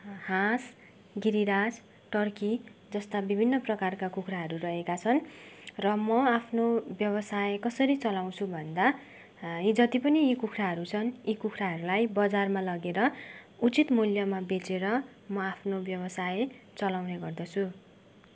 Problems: background sounds at intervals